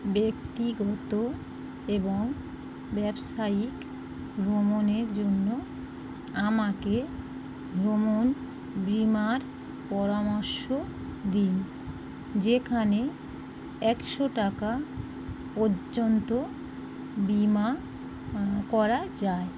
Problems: constant background noise